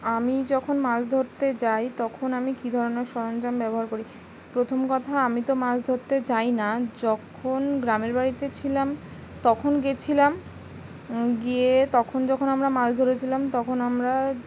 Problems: constant background noise